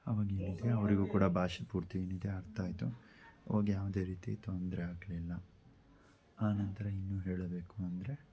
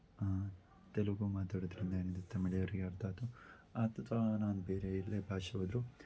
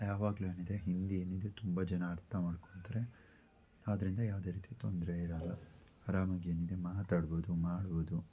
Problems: background sounds at intervals